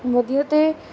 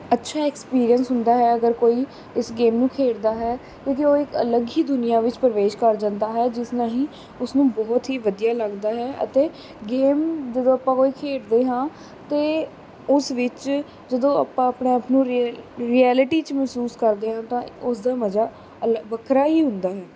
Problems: constant background noise